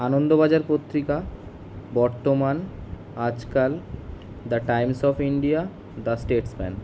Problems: constant background noise